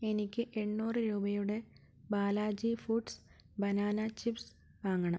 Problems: low volume